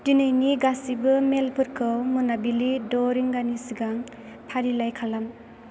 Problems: constant background noise